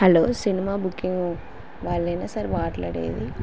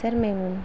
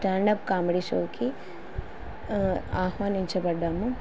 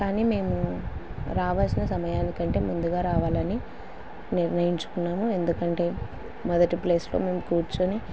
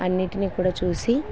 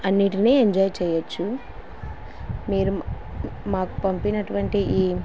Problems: constant background noise